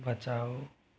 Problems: low volume